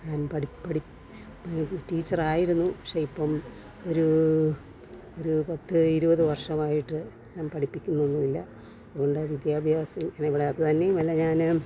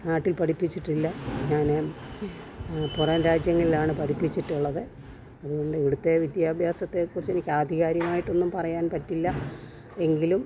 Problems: none marked